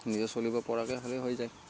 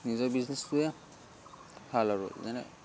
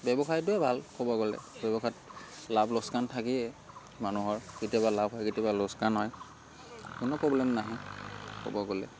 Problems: constant background noise, continuous background conversations